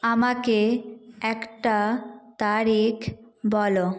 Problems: background sounds at intervals